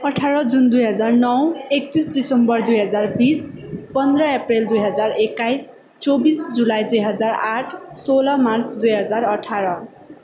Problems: none marked